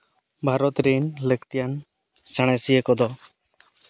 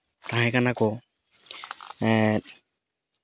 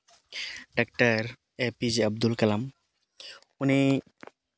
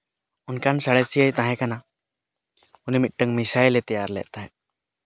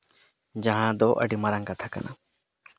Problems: none marked